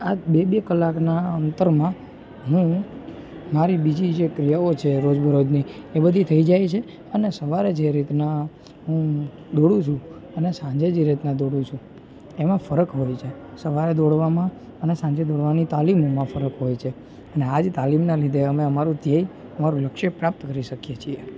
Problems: constant background noise